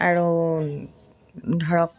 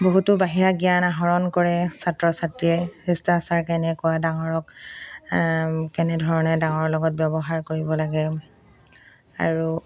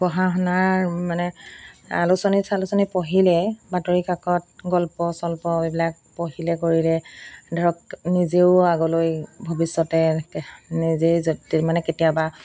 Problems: none marked